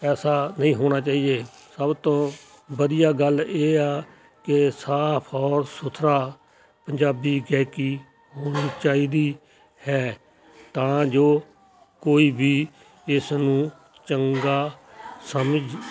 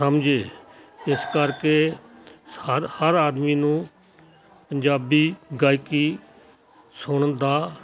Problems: continuous background conversations